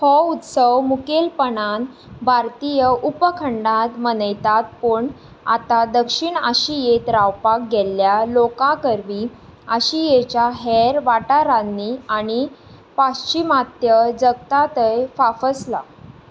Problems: background sounds at intervals